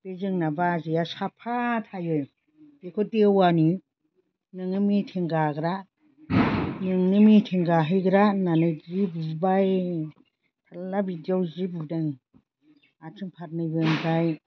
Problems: constant background noise